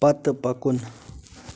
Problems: constant background noise